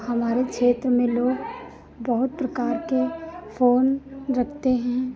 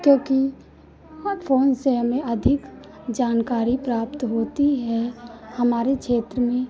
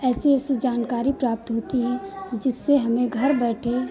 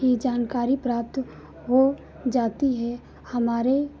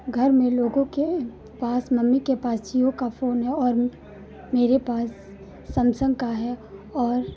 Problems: constant background noise